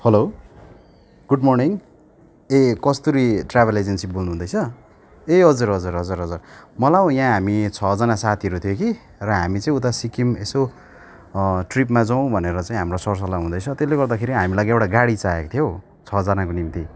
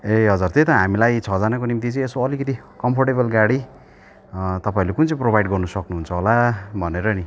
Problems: continuous background conversations